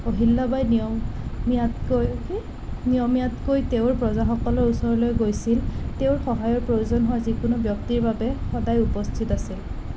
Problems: constant background noise